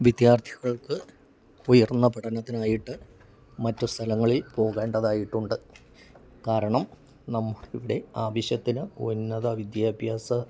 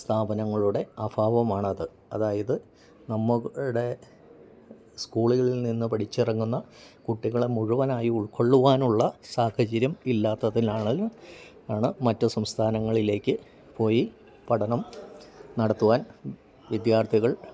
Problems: low volume